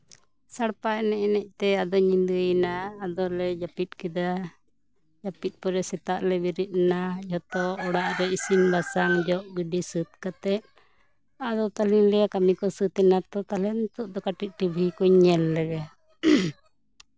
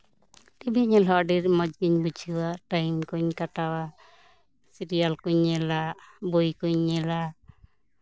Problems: none marked